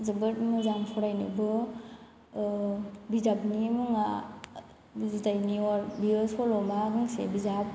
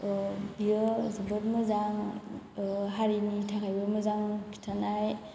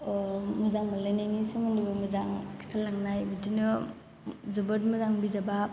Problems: background sounds at intervals